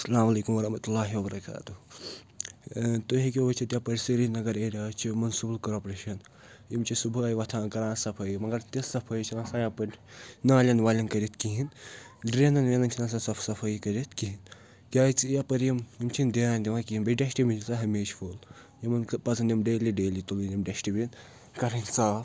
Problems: none marked